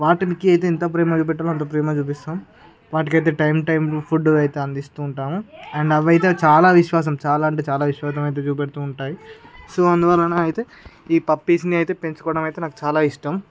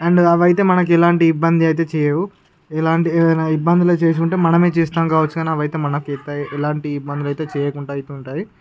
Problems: none marked